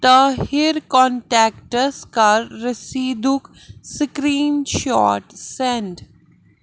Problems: constant background noise